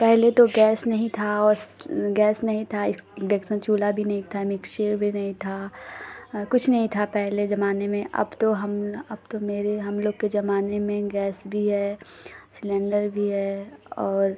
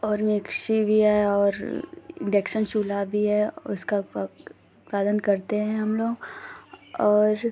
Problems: constant background noise